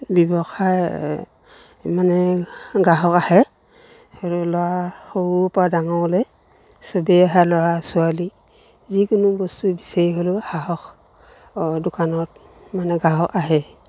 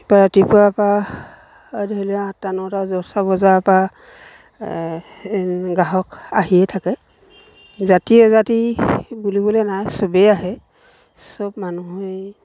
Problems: none marked